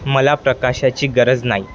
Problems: constant background noise, background conversations at intervals